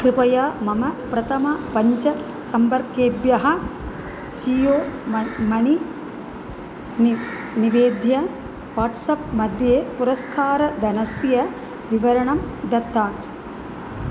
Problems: none marked